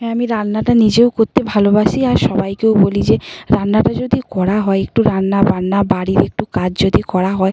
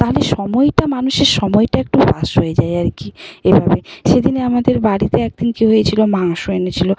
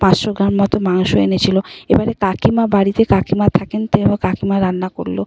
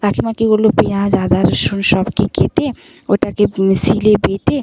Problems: background sounds at intervals